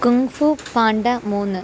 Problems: none marked